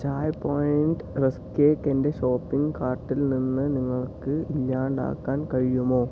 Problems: background sounds at intervals